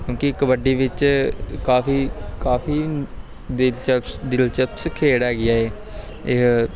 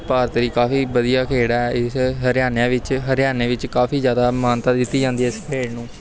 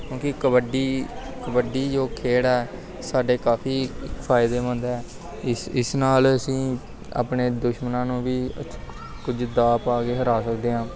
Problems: constant background noise, background conversations at intervals